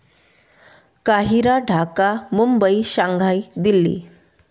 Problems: constant background noise